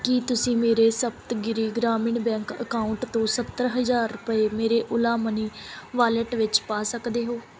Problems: background sounds at intervals